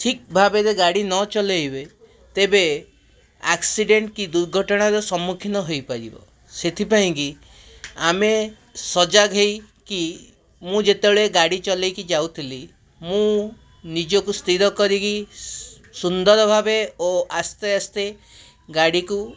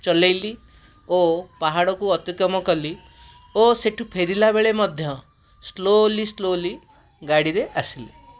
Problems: background sounds at intervals